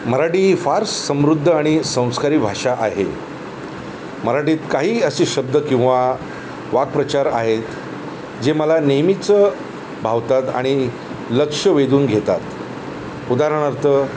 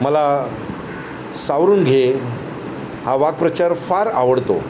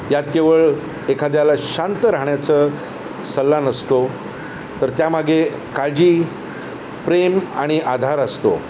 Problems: none marked